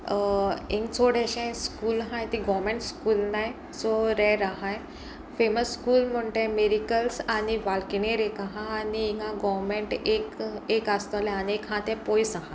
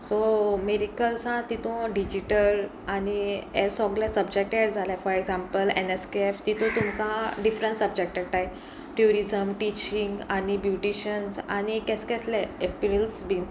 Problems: background sounds at intervals